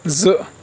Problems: constant background noise